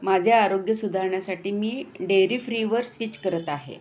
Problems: background sounds at intervals